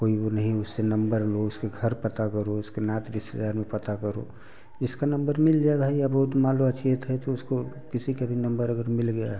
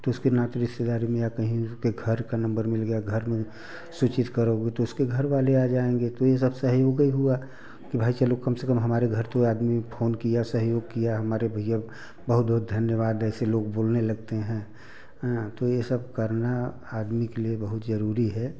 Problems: none marked